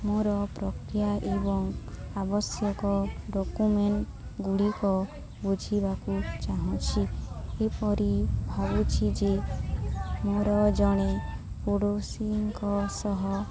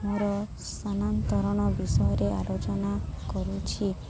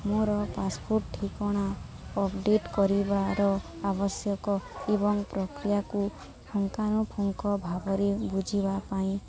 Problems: constant background noise, continuous background conversations